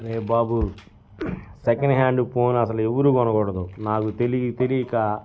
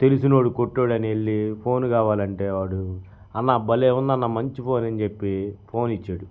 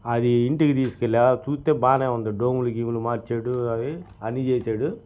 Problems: none marked